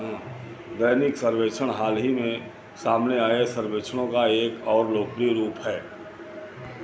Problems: constant background noise, continuous background conversations